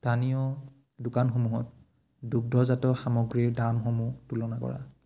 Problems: none marked